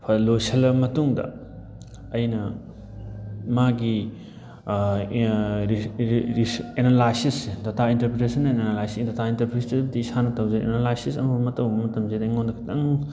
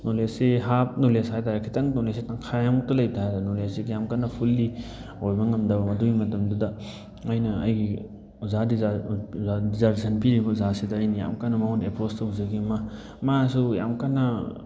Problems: background sounds at intervals